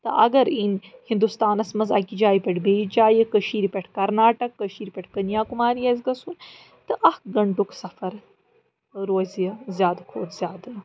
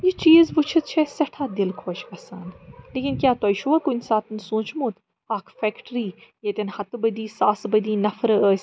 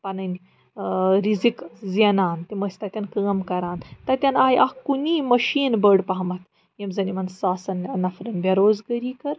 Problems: background sounds at intervals